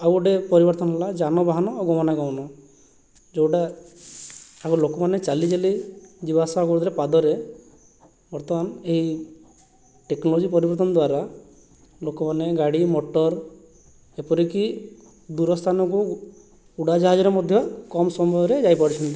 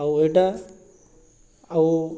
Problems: none marked